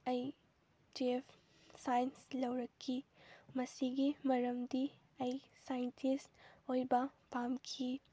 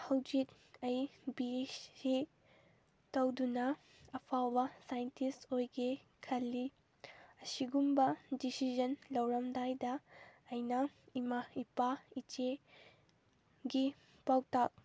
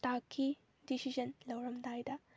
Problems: none marked